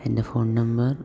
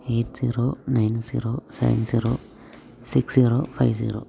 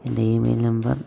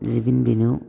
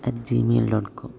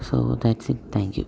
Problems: low volume